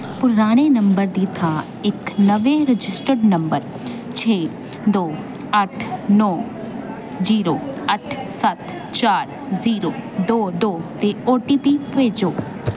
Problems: constant background noise